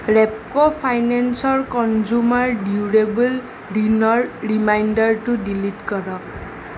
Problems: none marked